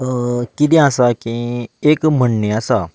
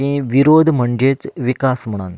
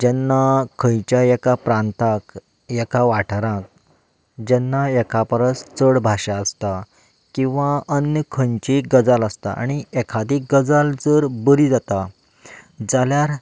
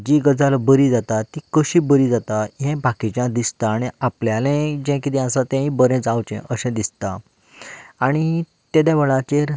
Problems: background sounds at intervals